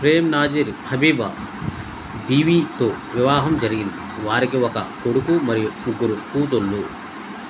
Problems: none marked